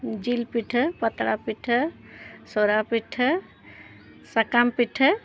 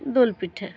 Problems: none marked